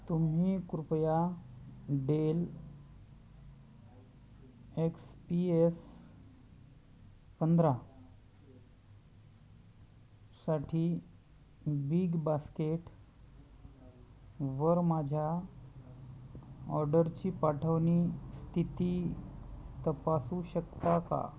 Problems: none marked